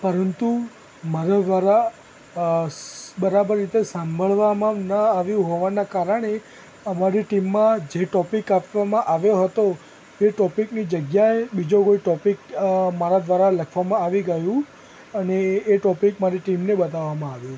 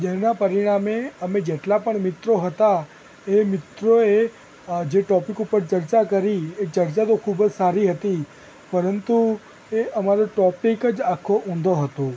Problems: constant background noise